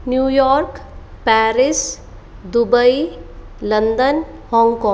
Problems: constant background noise